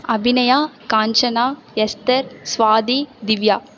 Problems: none marked